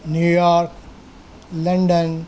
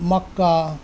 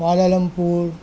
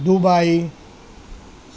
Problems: background sounds at intervals